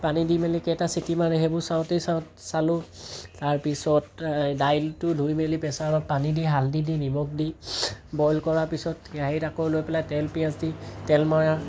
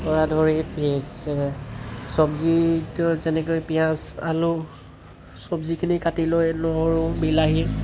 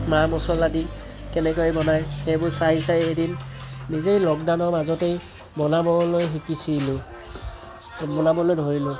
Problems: constant background noise